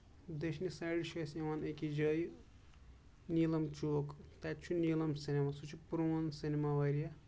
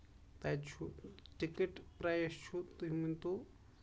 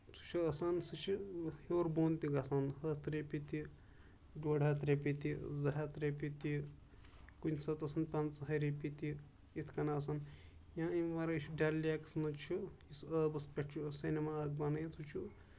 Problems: background sounds at intervals